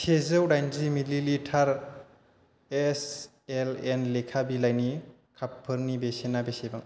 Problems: constant background noise